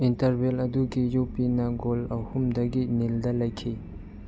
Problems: background sounds at intervals